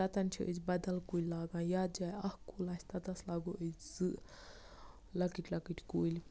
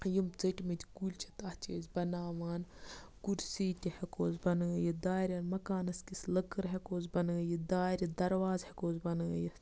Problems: none marked